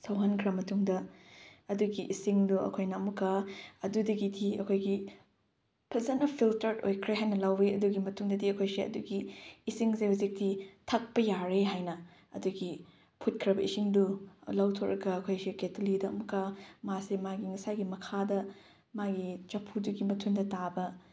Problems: none marked